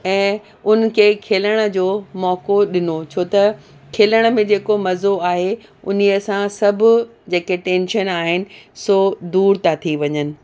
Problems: constant background noise